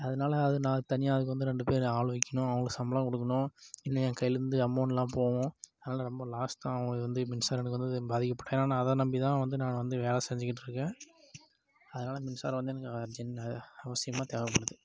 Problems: low volume